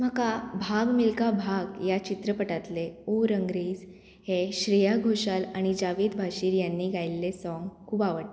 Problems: none marked